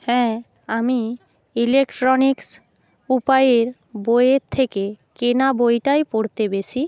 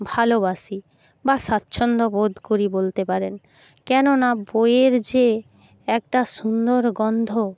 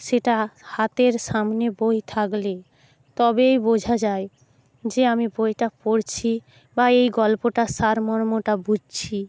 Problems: none marked